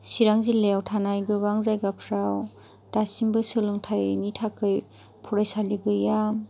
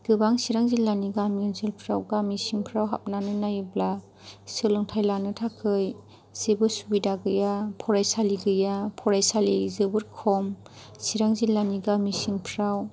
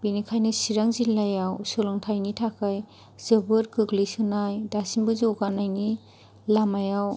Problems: none marked